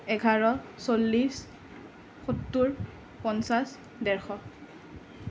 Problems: none marked